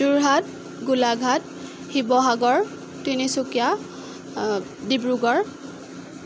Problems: none marked